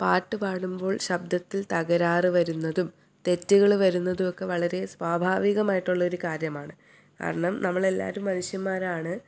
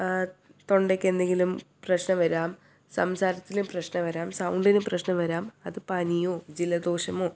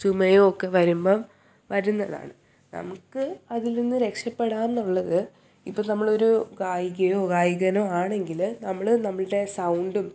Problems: none marked